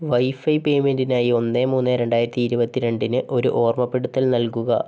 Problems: none marked